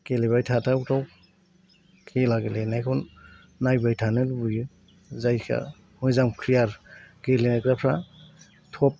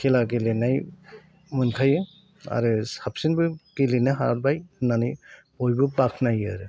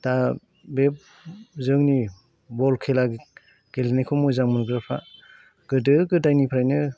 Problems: none marked